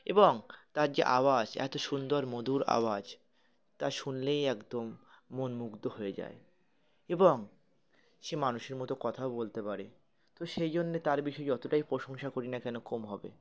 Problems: background sounds at intervals, continuous background conversations